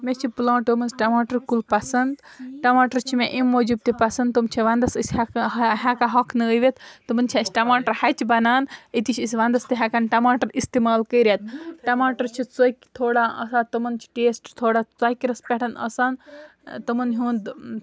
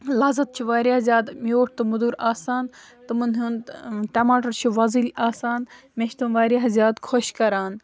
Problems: background sounds at intervals, background conversations at intervals